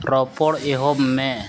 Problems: background sounds at intervals, low volume